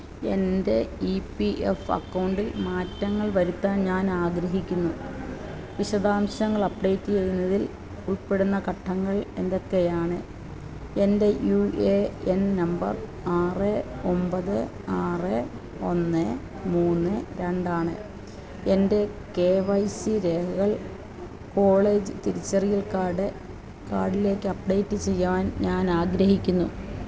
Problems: constant background noise